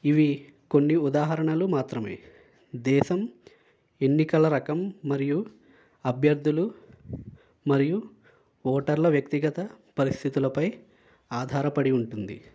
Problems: none marked